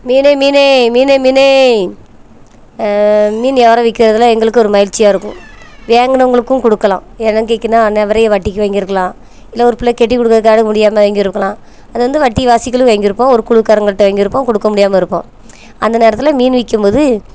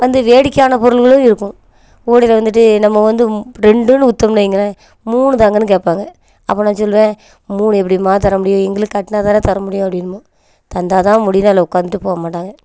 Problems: none marked